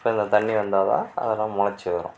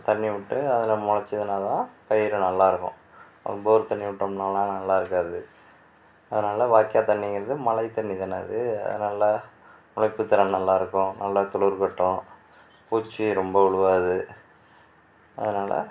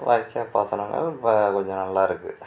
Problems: background sounds at intervals